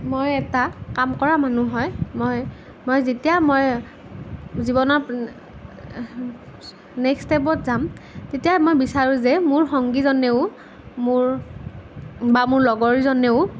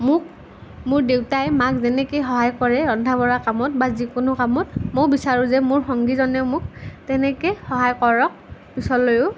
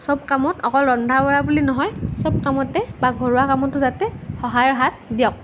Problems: none marked